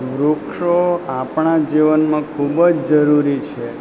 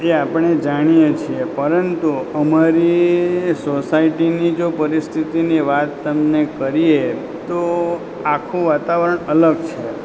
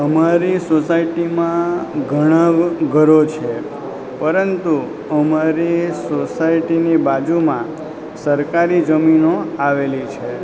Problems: constant background noise